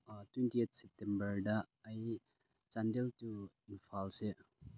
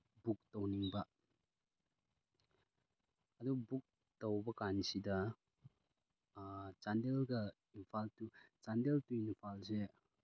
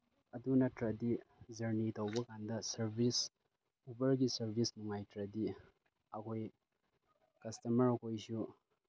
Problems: low volume